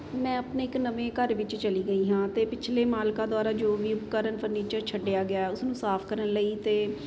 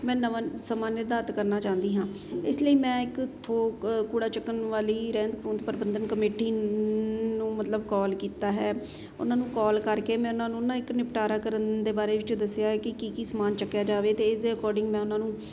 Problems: constant background noise